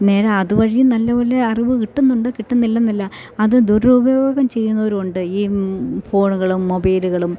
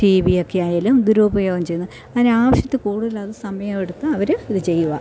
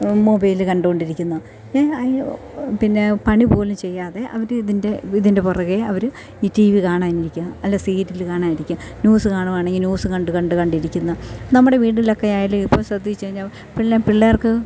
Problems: none marked